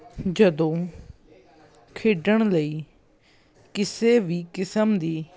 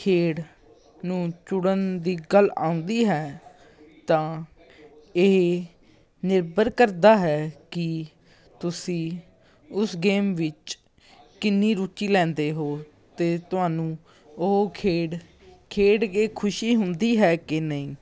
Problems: background conversations at intervals